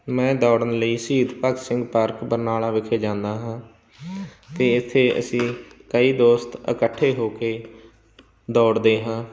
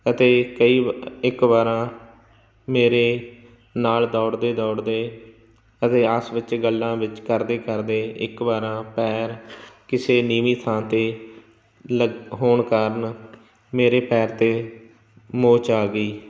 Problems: none marked